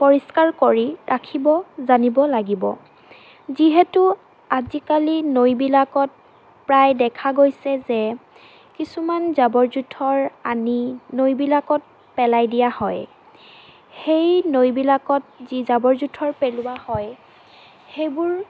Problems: constant background noise